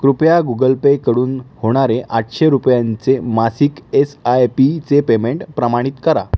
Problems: background sounds at intervals